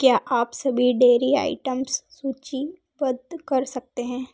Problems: none marked